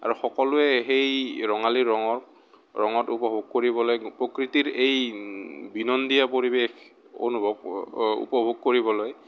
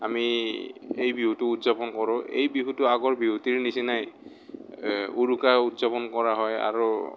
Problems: background sounds at intervals